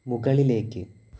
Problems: background sounds at intervals